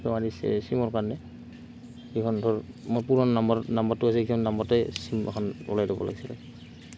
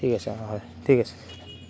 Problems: constant background noise